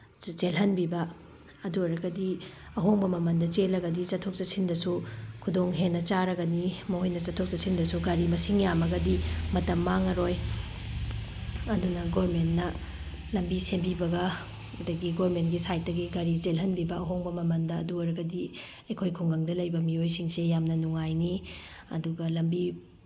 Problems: none marked